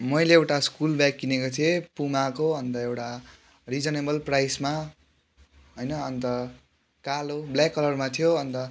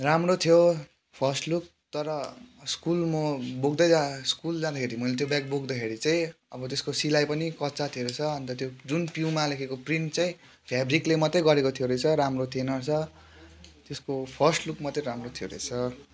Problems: background sounds at intervals